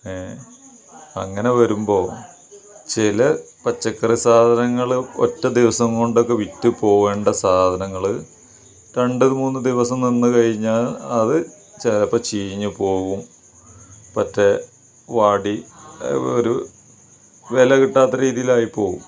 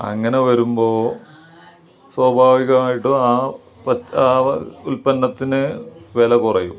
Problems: none marked